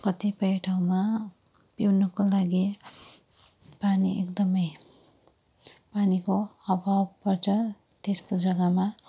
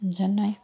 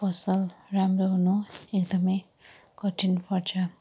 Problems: low volume